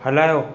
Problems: constant background noise